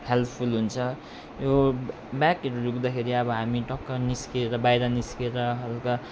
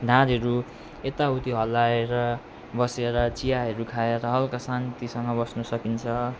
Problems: constant background noise